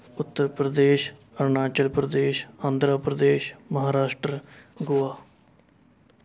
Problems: background conversations at intervals